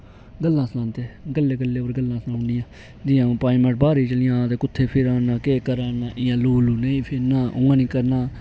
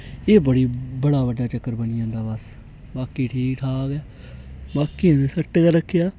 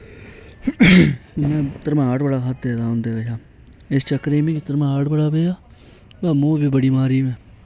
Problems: constant background noise